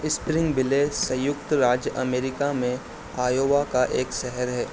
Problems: constant background noise